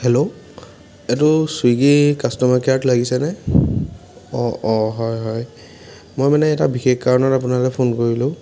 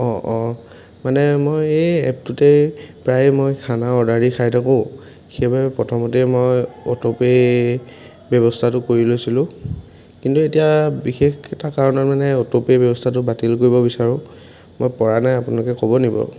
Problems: constant background noise